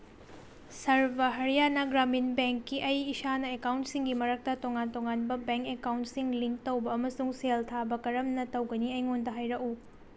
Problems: background sounds at intervals, low volume